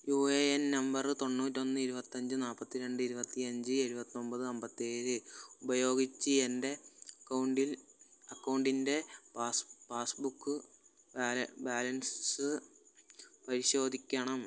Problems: constant background noise